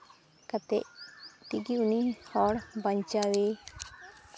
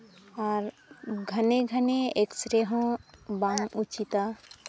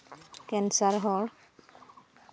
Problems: background sounds at intervals